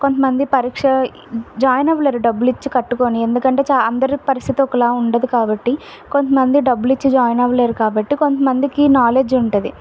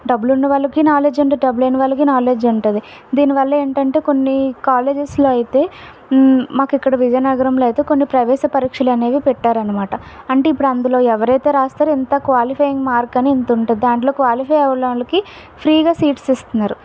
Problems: background sounds at intervals